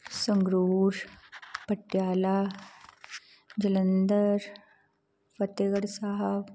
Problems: none marked